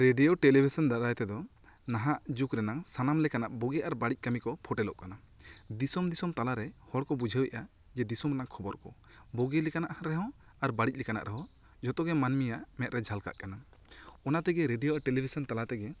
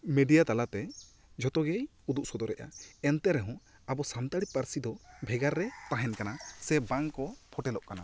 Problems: none marked